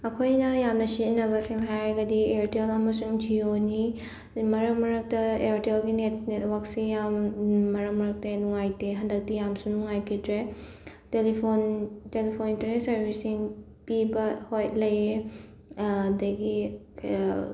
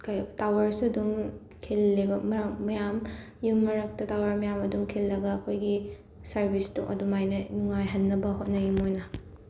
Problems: background sounds at intervals